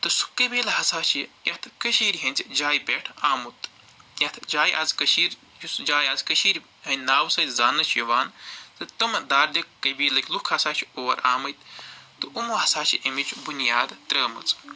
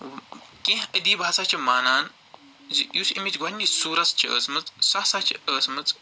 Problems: constant background noise